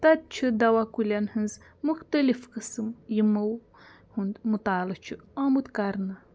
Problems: none marked